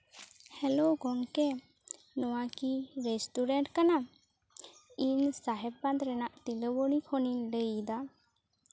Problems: background sounds at intervals, low volume